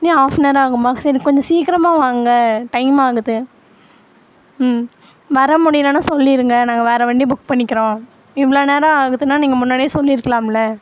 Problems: constant background noise